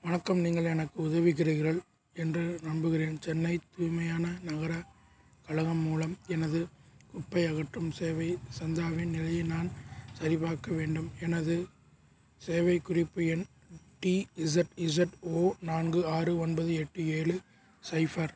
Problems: none marked